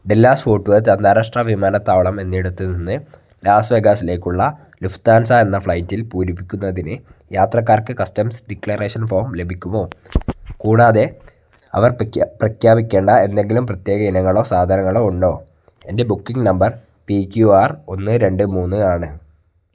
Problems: background sounds at intervals